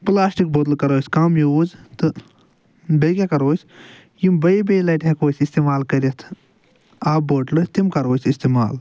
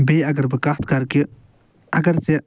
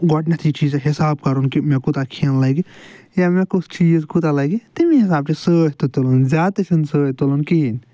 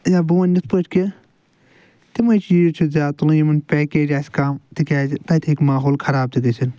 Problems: none marked